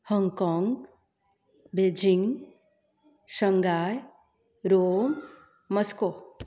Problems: constant background noise